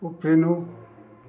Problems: none marked